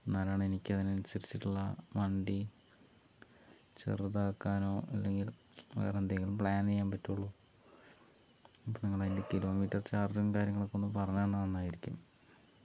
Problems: low volume